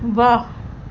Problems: constant background noise